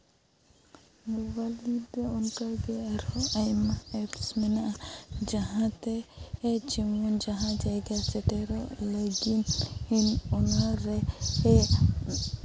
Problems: background sounds at intervals